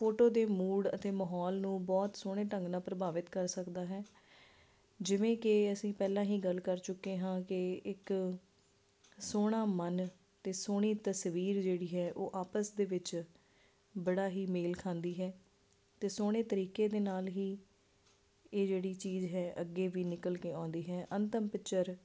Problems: none marked